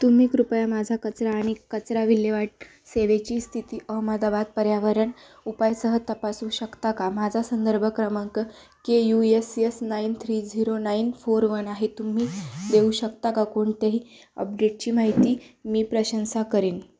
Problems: constant background noise